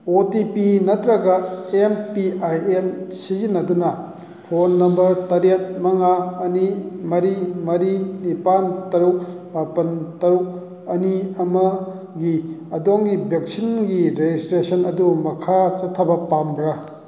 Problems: background sounds at intervals